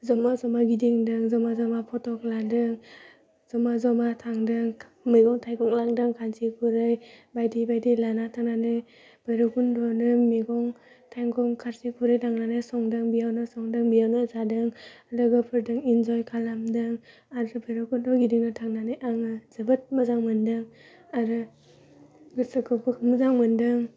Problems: constant background noise